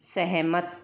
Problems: background sounds at intervals